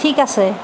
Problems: none marked